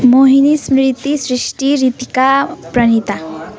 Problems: continuous background conversations